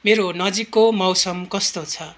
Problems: continuous background conversations